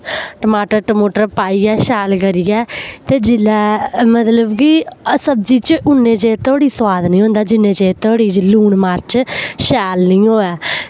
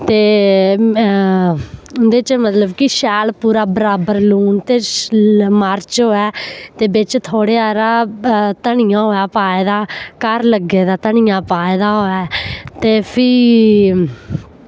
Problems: none marked